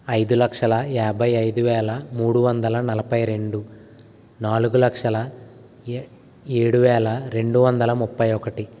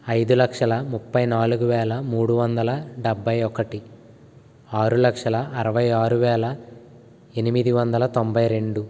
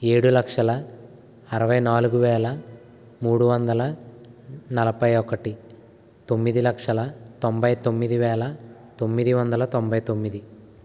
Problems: constant background noise